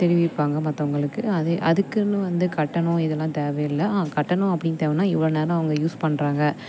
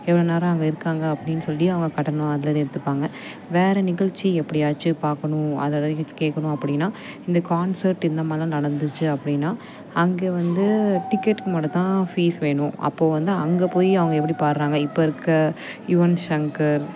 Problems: constant background noise